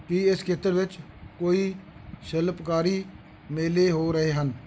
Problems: none marked